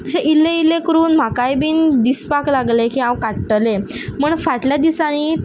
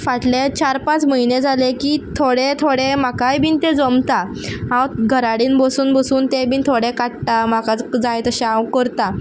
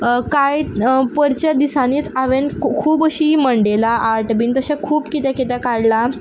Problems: background sounds at intervals